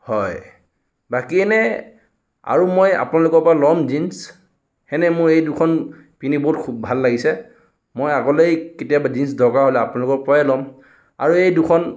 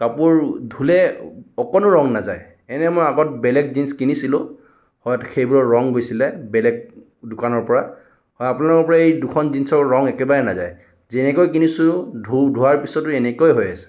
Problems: none marked